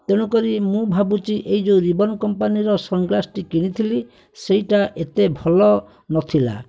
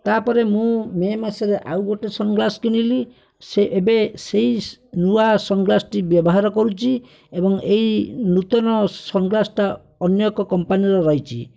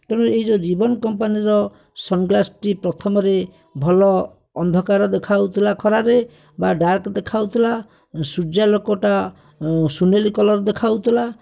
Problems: background sounds at intervals